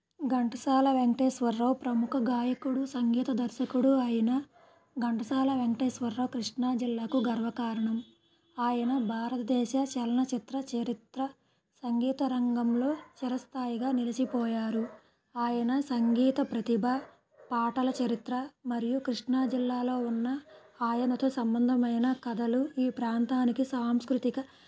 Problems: low volume